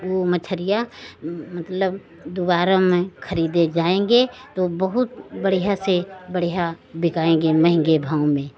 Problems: none marked